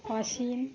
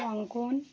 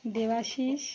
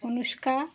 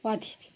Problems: none marked